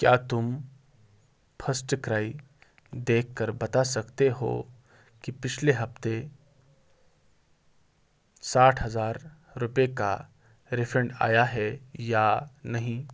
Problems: background sounds at intervals